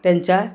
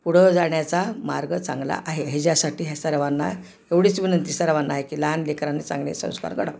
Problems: background sounds at intervals